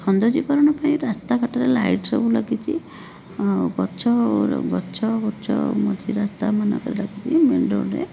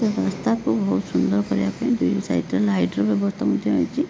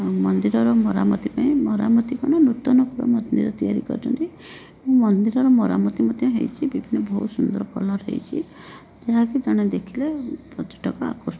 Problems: constant background noise